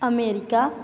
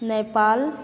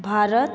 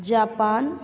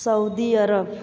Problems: background sounds at intervals, background conversations at intervals